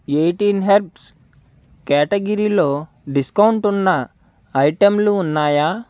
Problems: constant background noise